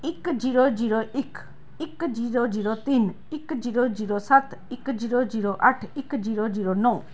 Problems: background sounds at intervals